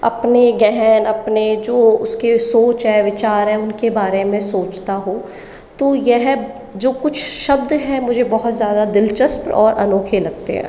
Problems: echo